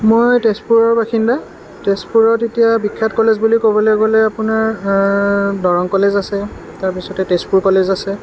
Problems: constant background noise